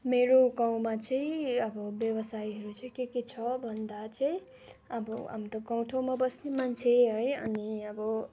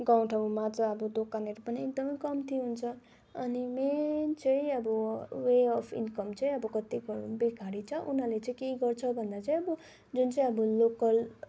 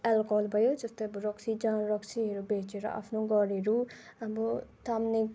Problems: background sounds at intervals